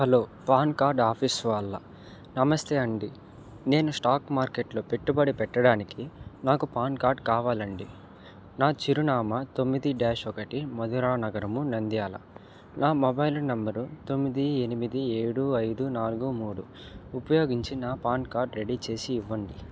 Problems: none marked